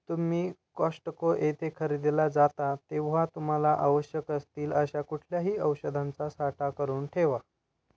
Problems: background sounds at intervals